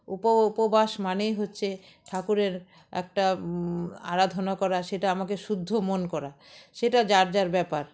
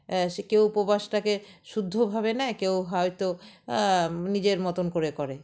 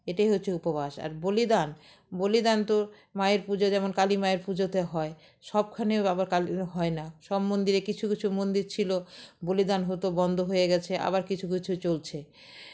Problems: none marked